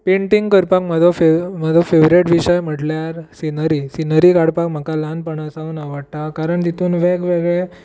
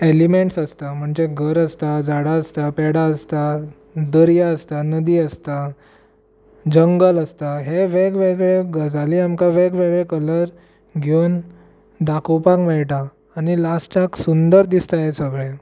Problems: none marked